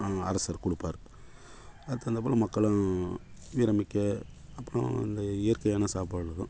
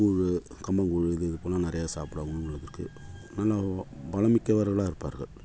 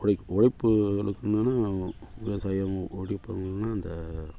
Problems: background sounds at intervals